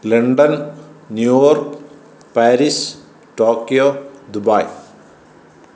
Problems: background sounds at intervals